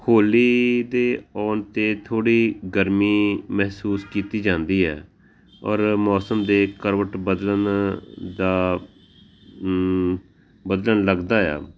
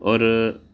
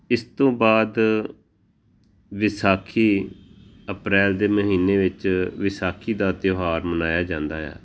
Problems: constant background noise